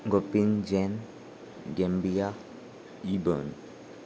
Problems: none marked